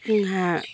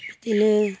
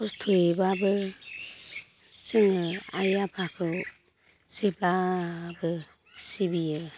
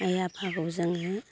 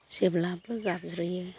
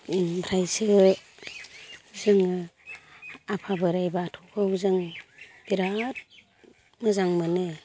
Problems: low volume